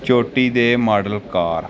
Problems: background sounds at intervals